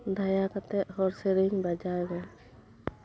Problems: low volume